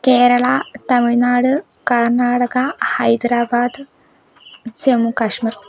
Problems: background sounds at intervals